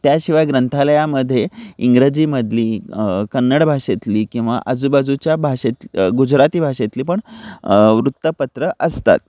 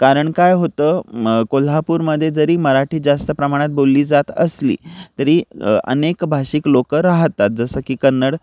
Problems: none marked